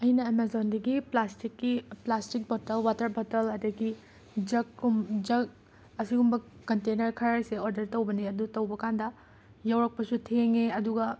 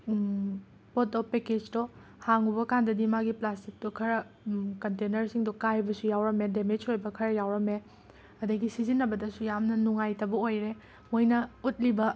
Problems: constant background noise